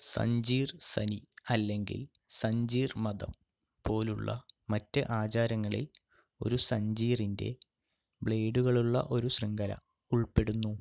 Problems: low volume